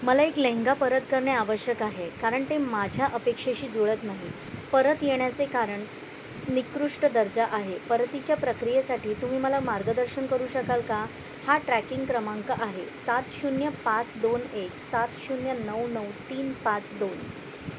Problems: none marked